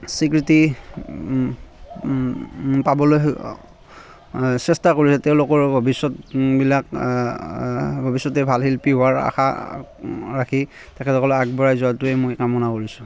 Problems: constant background noise, continuous background conversations